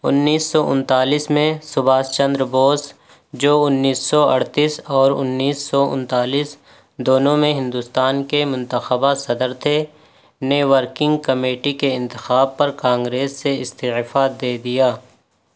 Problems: constant background noise